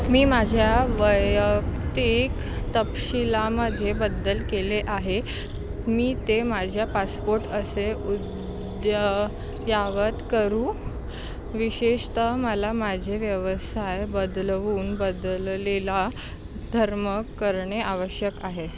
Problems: constant background noise